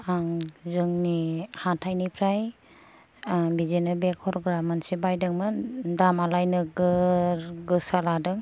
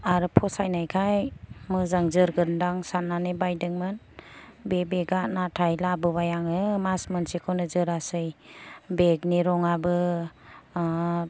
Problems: low volume